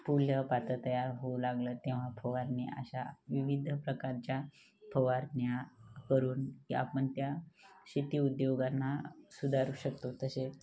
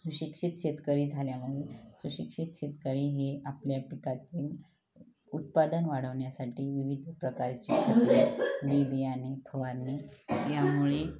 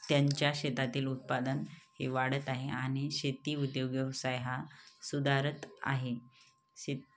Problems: background sounds at intervals, background conversations at intervals